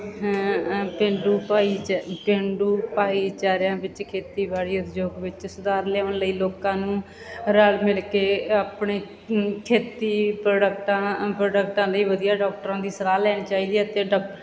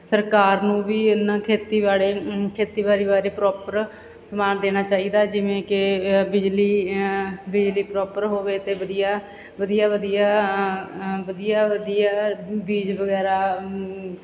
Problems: background sounds at intervals